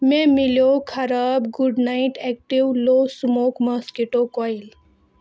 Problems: constant background noise